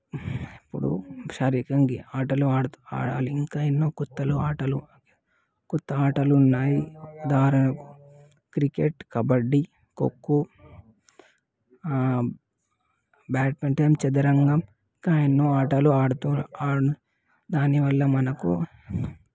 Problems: background sounds at intervals, background conversations at intervals